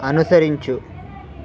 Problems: constant background noise